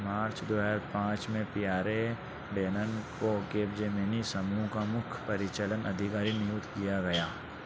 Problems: none marked